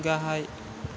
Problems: constant background noise